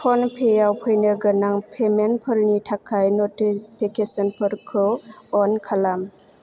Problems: low volume